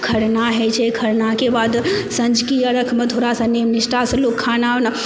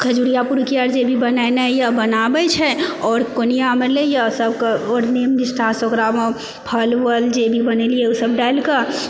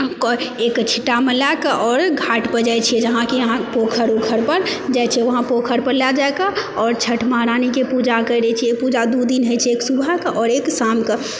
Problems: background sounds at intervals, background conversations at intervals